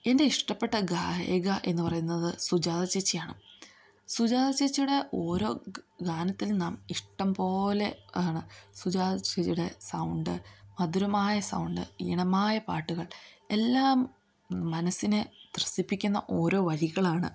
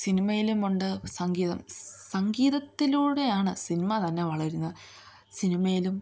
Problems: none marked